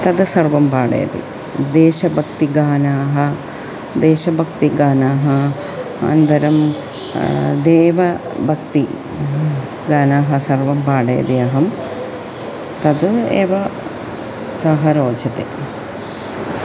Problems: constant background noise